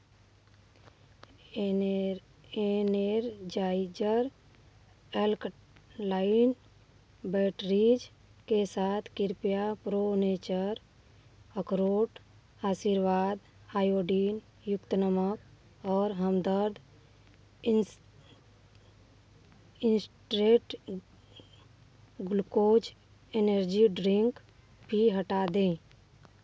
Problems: background sounds at intervals